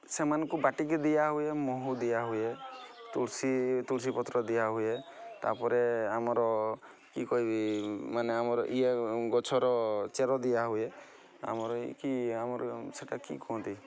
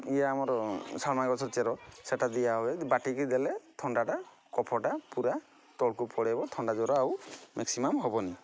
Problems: constant background noise, continuous background conversations